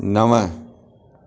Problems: constant background noise, echo